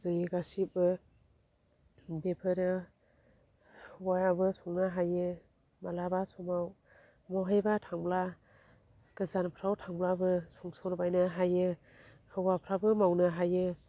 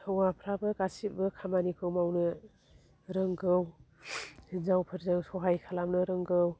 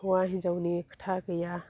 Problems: low volume